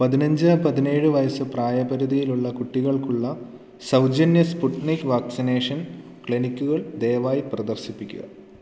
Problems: none marked